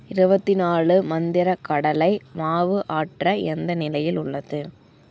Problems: none marked